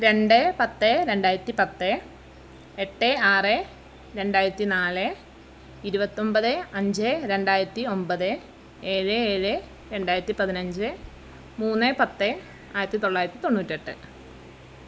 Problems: constant background noise